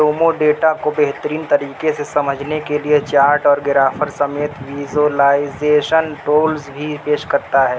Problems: constant background noise